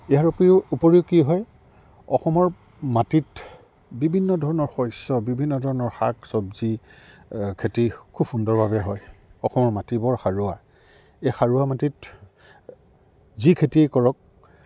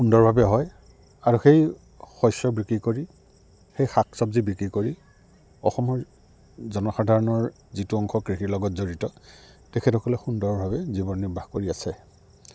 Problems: none marked